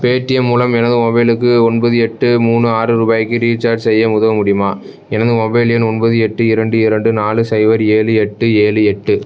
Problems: none marked